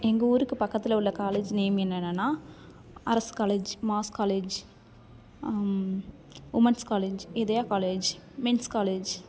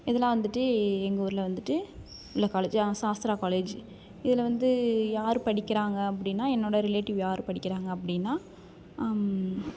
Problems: background sounds at intervals, continuous background conversations